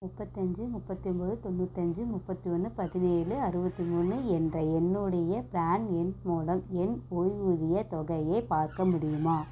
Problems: background sounds at intervals, low volume